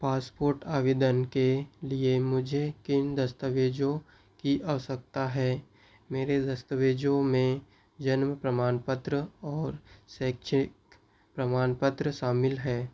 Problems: background sounds at intervals